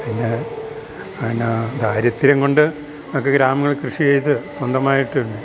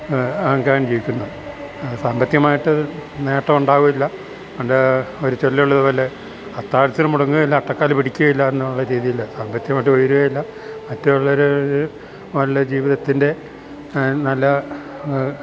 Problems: constant background noise